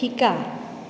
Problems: none marked